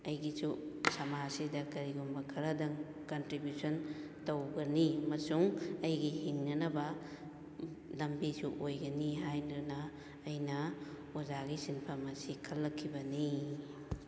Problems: echo